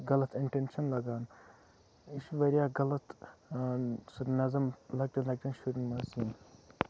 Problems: background sounds at intervals, low volume